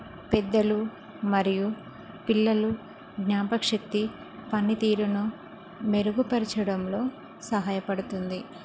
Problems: constant background noise